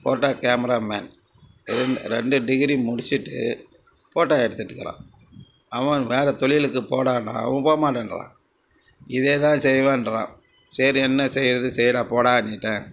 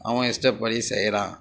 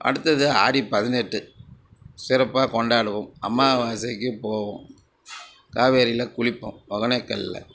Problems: background sounds at intervals, background conversations at intervals